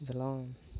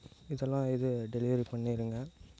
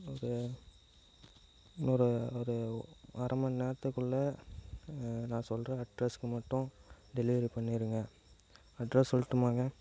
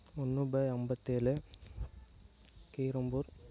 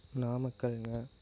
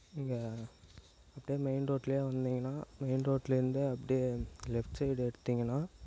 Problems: constant background noise